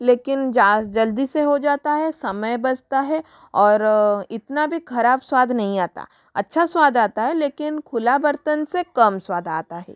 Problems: none marked